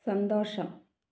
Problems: low volume